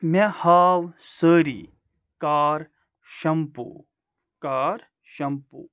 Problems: none marked